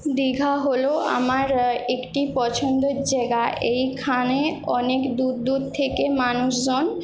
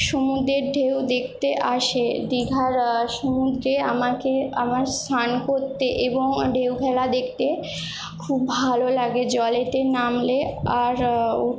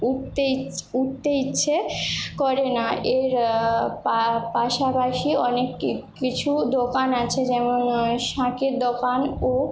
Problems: none marked